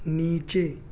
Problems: background sounds at intervals